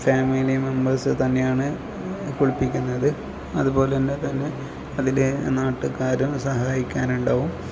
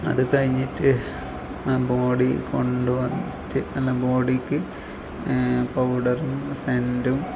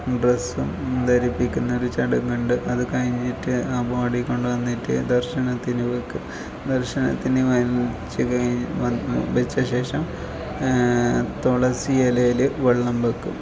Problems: low volume